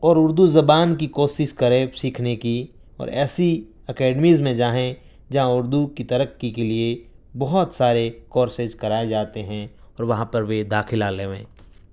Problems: background sounds at intervals